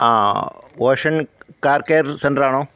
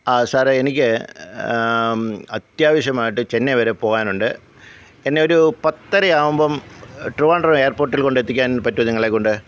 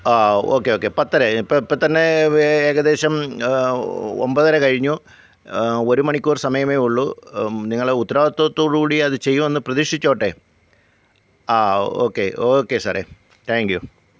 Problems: none marked